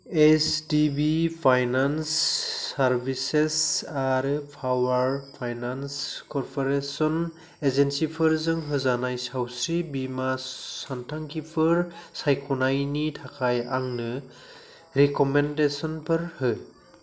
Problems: none marked